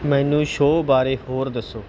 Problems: background sounds at intervals